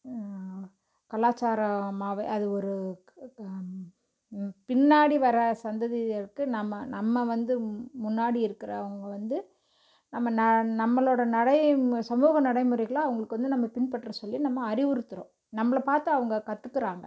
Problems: none marked